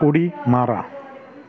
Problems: continuous background conversations